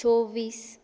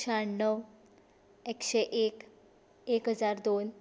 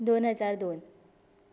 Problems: none marked